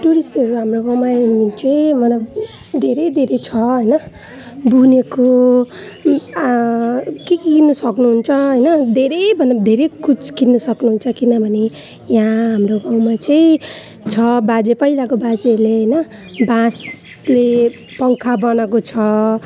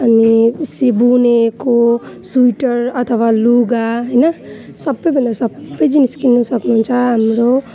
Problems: continuous background conversations